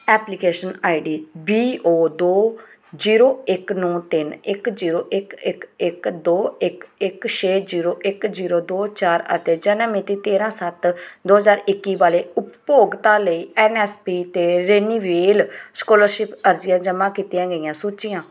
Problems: background sounds at intervals